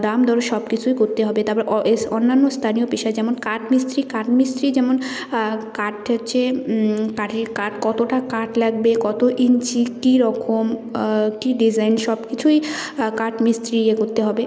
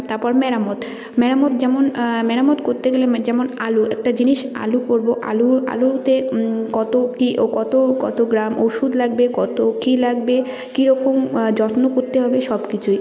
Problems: none marked